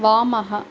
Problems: constant background noise